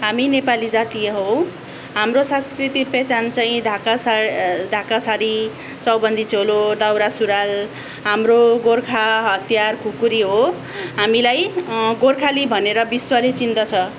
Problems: background sounds at intervals